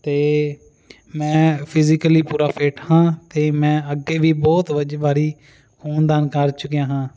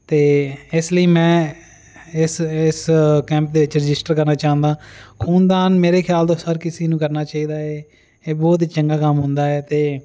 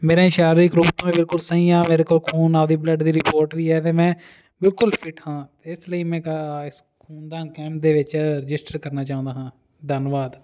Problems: constant background noise